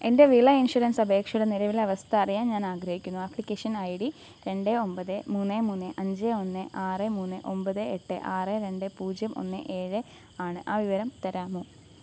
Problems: none marked